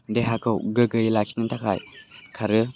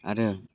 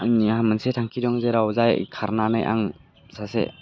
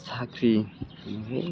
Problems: constant background noise